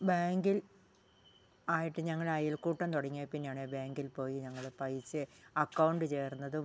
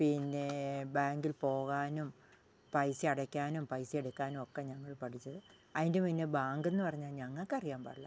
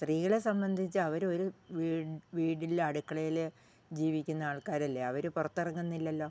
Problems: low volume